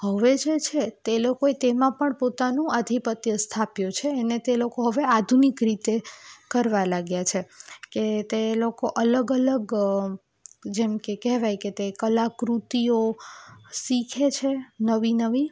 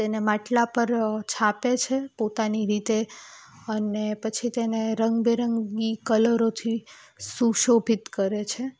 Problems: none marked